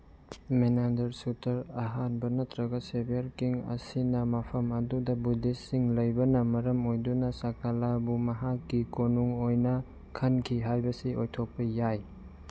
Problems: none marked